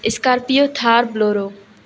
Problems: background sounds at intervals